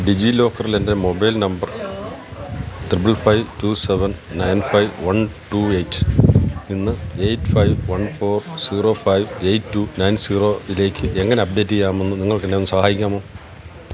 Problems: constant background noise